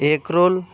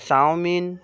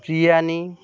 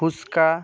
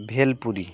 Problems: none marked